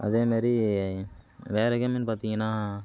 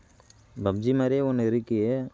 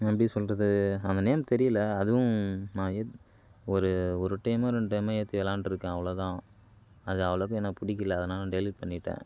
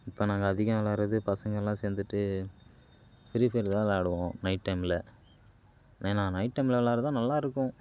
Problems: none marked